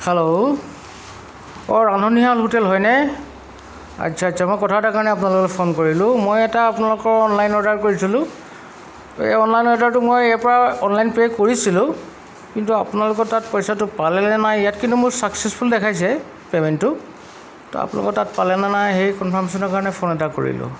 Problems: none marked